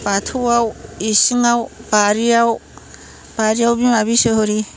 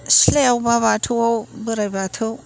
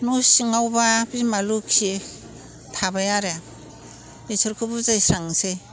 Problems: none marked